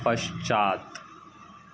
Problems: none marked